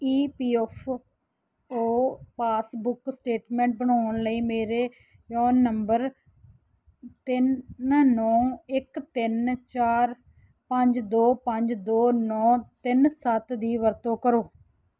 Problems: background sounds at intervals